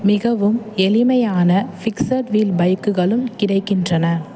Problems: constant background noise, background conversations at intervals